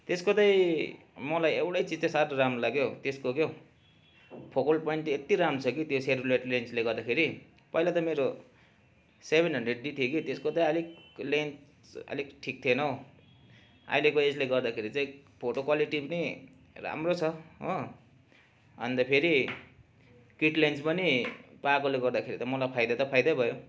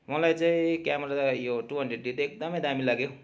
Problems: none marked